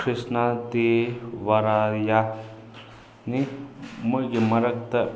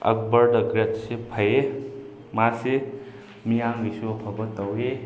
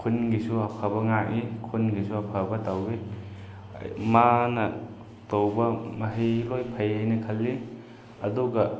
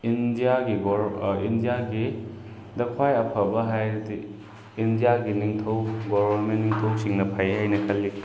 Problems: constant background noise